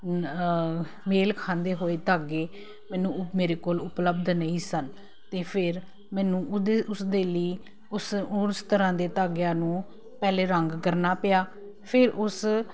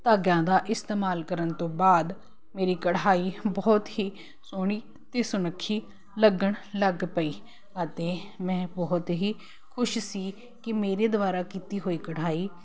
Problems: constant background noise